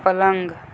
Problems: constant background noise